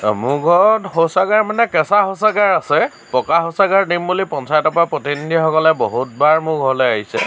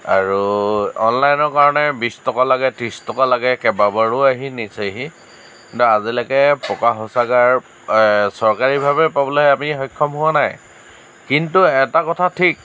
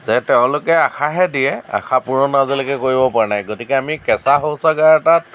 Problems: none marked